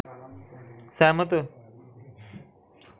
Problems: none marked